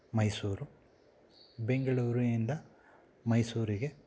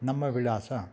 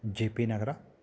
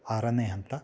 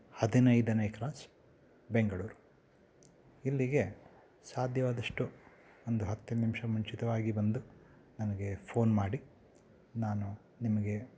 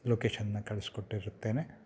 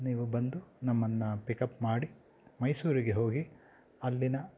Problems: background sounds at intervals